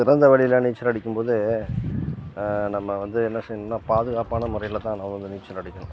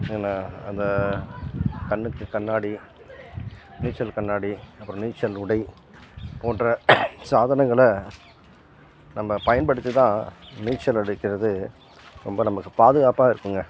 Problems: background sounds at intervals